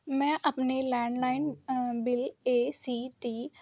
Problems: constant background noise